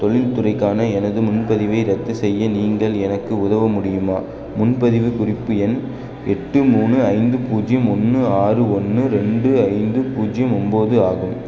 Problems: constant background noise